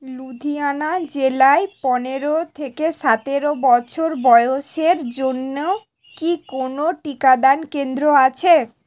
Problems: constant background noise